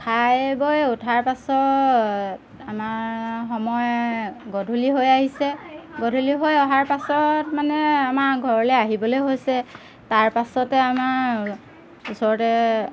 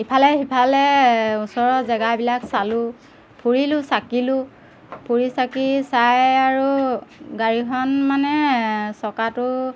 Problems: background sounds at intervals